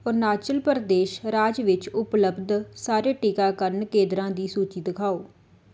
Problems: none marked